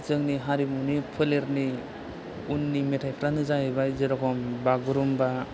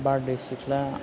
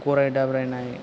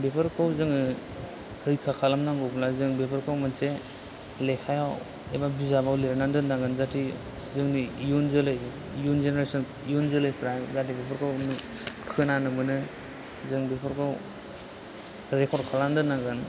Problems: constant background noise